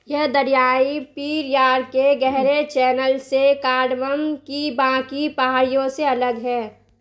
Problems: constant background noise